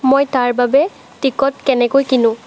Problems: none marked